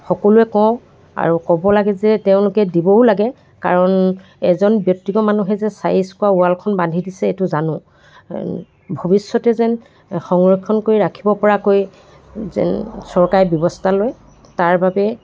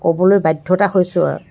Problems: background conversations at intervals